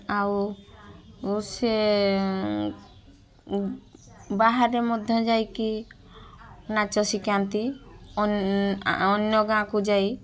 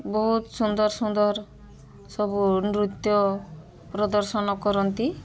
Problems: constant background noise, continuous background conversations